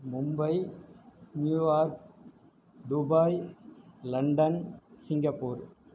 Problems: low volume